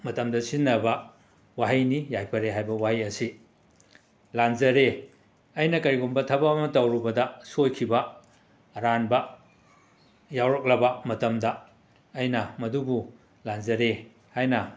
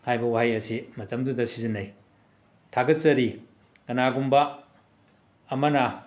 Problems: background sounds at intervals